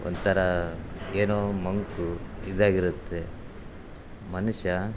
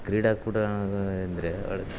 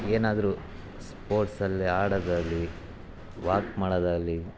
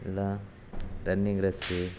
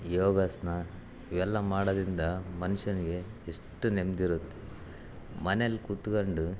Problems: background sounds at intervals